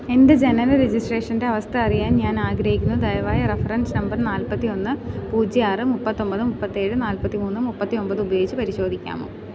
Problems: none marked